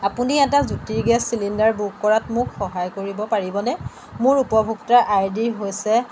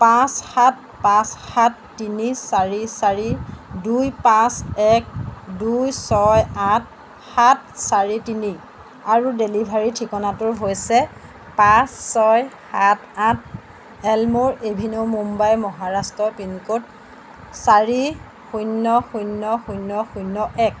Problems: background sounds at intervals